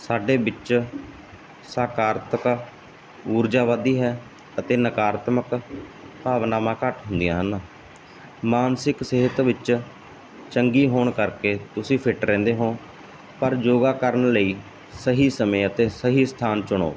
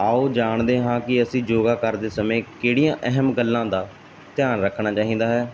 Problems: none marked